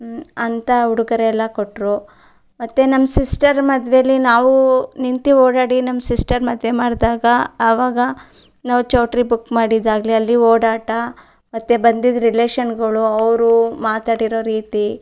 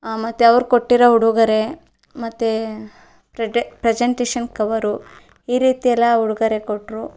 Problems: none marked